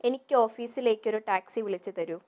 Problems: none marked